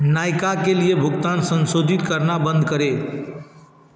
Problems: constant background noise